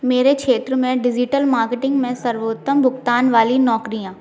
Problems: constant background noise, background conversations at intervals